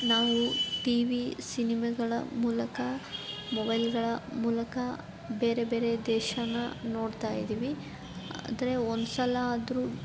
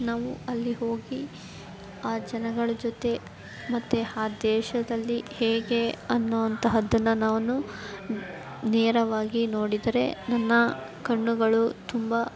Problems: background sounds at intervals